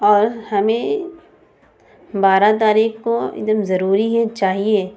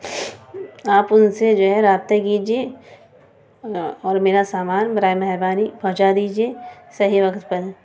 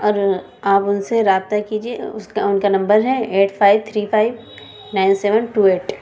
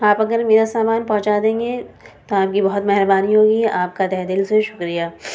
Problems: constant background noise, continuous background conversations